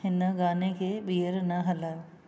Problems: none marked